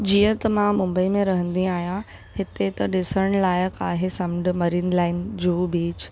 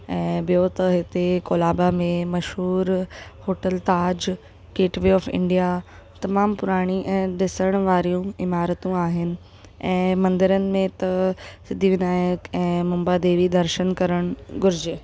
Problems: constant background noise